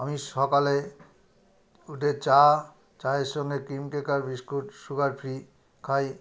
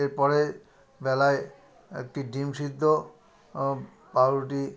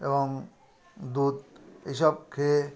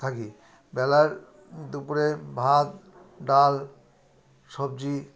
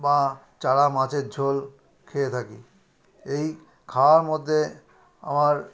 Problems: continuous background conversations